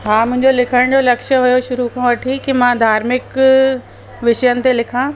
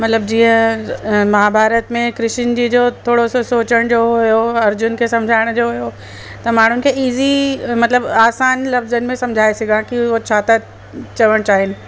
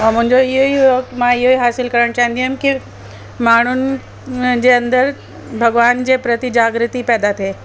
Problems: constant background noise